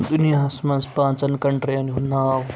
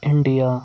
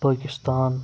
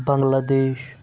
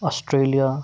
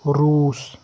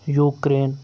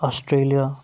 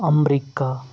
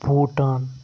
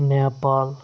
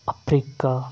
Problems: constant background noise